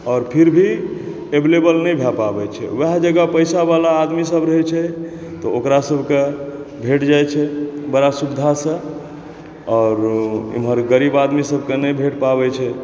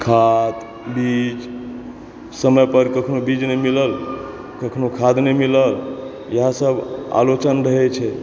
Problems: background sounds at intervals